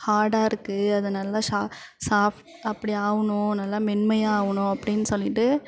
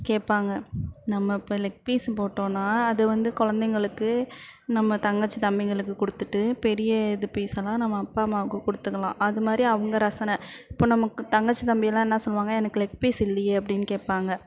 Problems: none marked